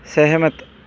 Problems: none marked